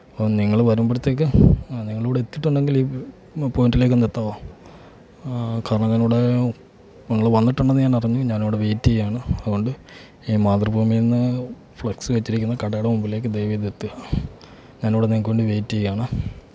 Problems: low volume